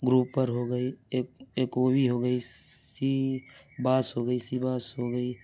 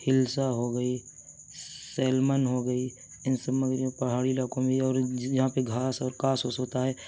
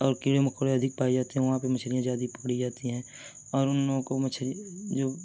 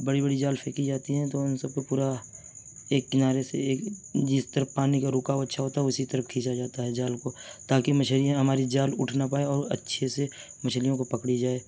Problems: none marked